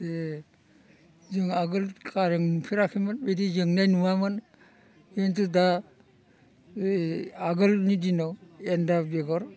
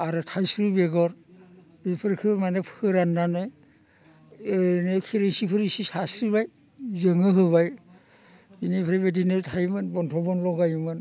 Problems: constant background noise